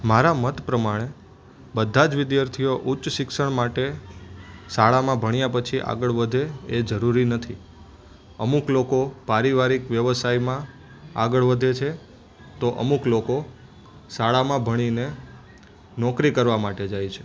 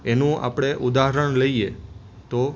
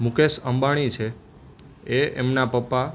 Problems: constant background noise